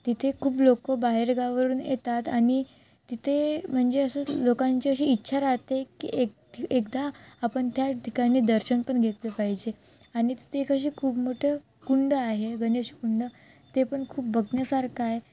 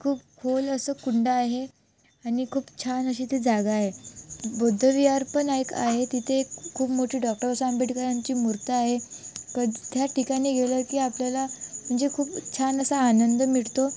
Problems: constant background noise